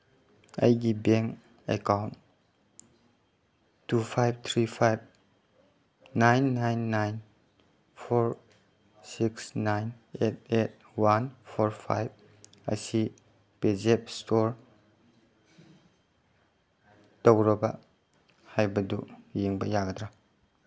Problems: background sounds at intervals